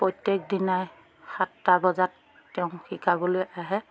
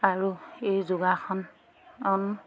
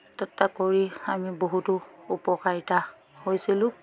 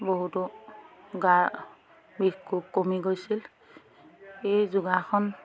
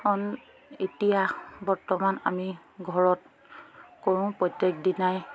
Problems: background sounds at intervals, background conversations at intervals